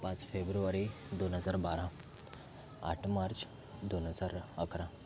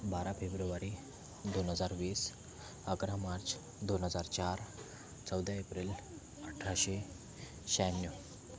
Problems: constant background noise, continuous background conversations